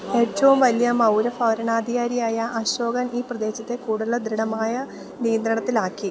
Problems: none marked